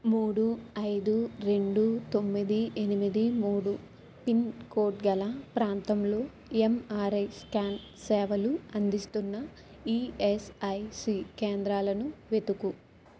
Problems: background sounds at intervals